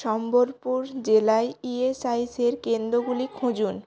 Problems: continuous background conversations